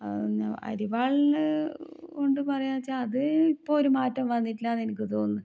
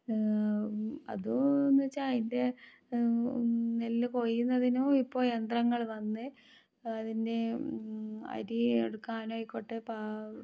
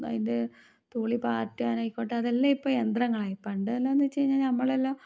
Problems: low volume